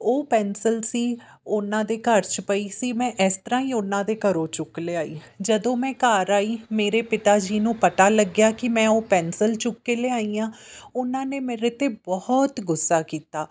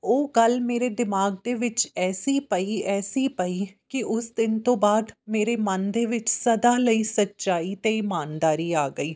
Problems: none marked